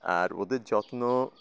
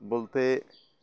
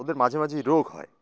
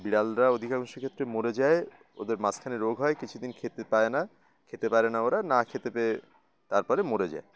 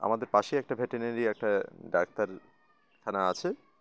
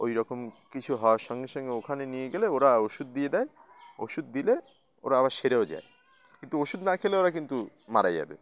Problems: constant background noise, continuous background conversations